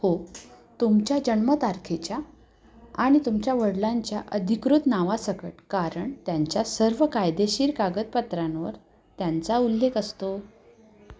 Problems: constant background noise, background conversations at intervals